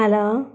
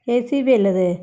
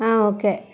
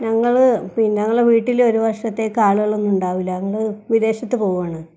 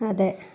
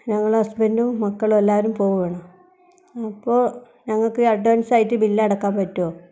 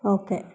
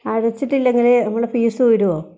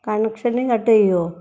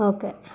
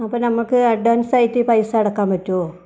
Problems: none marked